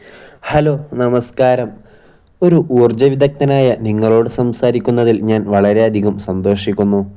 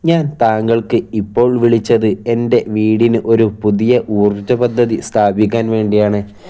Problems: none marked